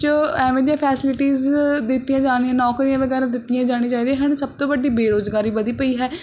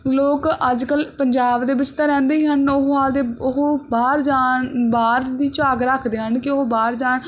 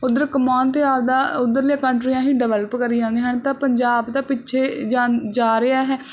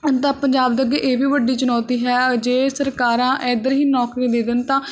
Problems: constant background noise